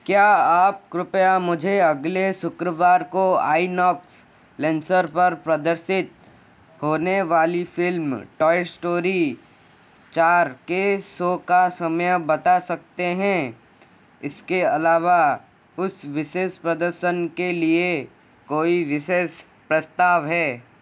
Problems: constant background noise